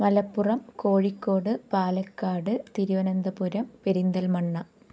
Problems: none marked